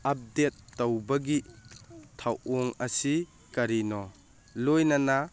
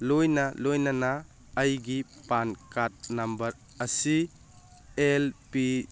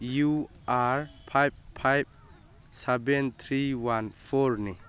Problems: background sounds at intervals